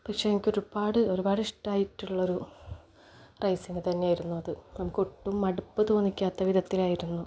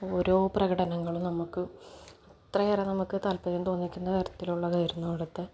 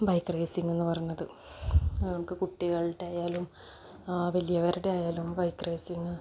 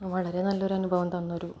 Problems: none marked